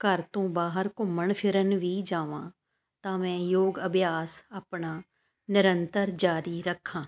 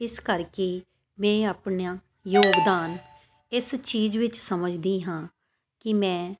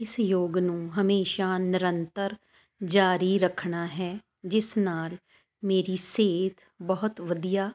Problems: constant background noise